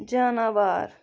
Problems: none marked